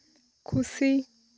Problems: none marked